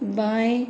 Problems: constant background noise, echo